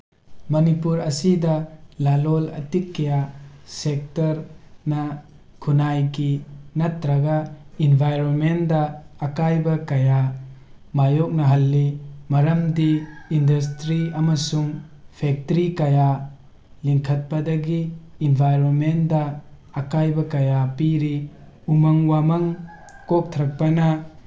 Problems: background sounds at intervals